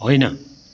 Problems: background sounds at intervals